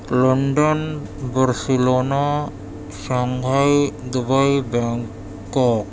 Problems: constant background noise